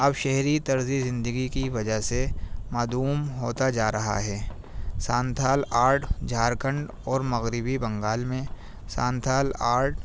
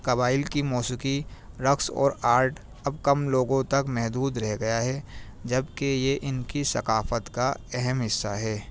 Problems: constant background noise